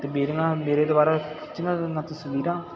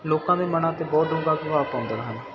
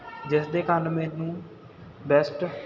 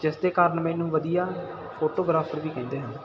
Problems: continuous background conversations